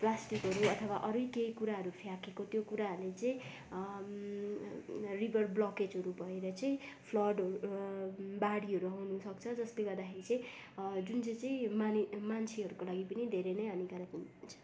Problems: constant background noise, background conversations at intervals